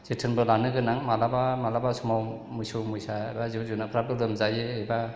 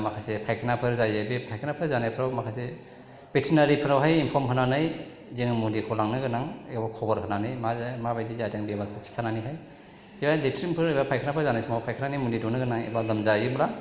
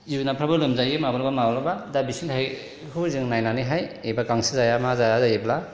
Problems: none marked